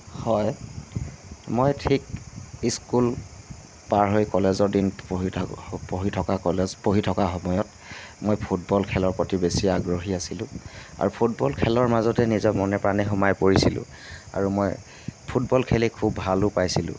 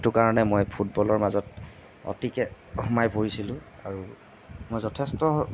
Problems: background sounds at intervals